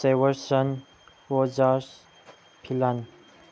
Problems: none marked